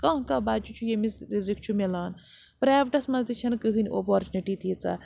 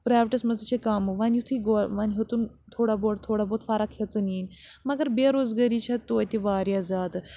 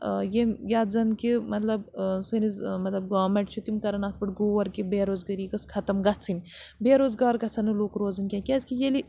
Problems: constant background noise